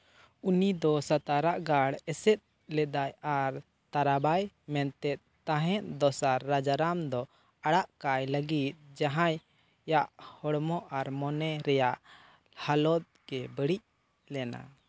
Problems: none marked